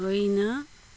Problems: none marked